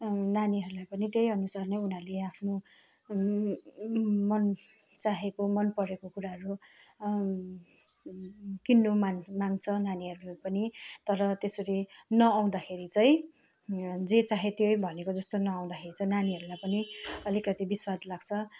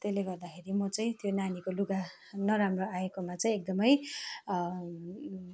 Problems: constant background noise